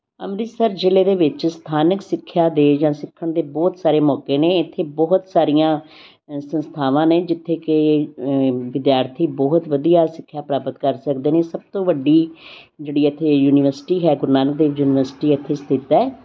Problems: constant background noise